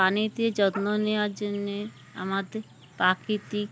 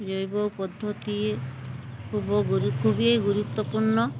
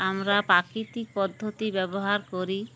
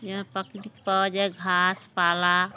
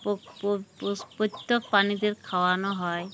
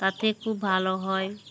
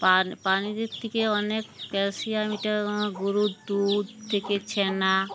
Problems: constant background noise